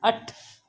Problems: constant background noise, echo